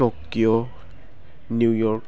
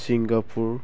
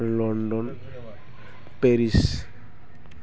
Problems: constant background noise